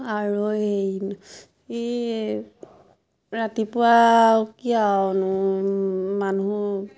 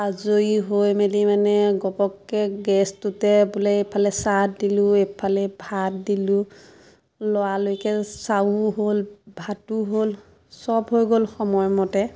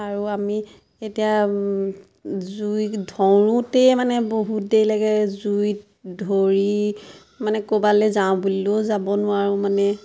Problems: constant background noise, background conversations at intervals